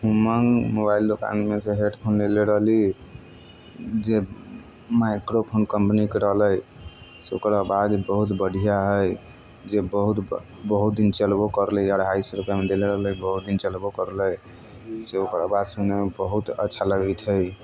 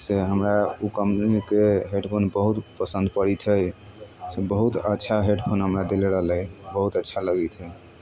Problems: none marked